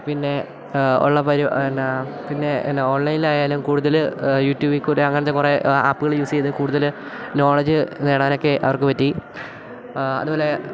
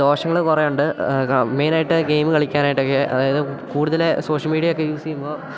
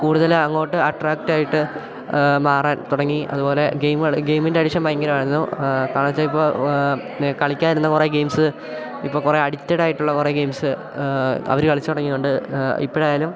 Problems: none marked